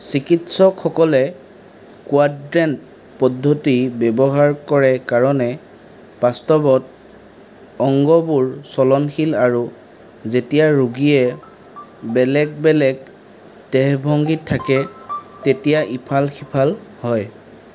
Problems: background sounds at intervals